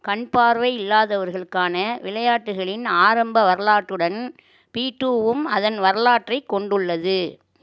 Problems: none marked